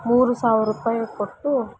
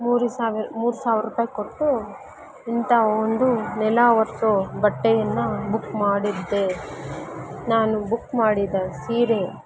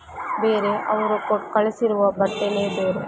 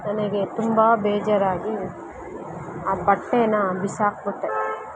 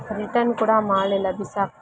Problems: constant background noise